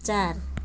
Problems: none marked